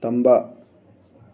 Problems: none marked